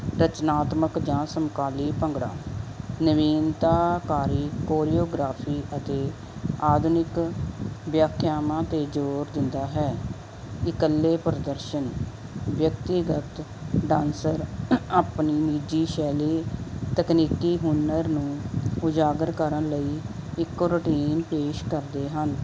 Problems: constant background noise